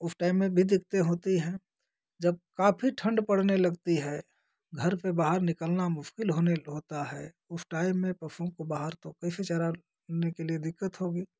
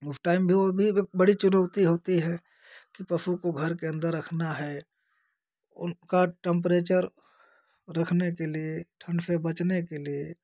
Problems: none marked